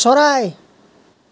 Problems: background conversations at intervals